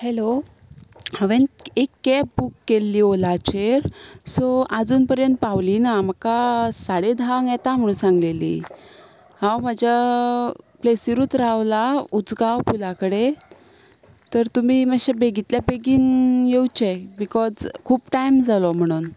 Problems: background sounds at intervals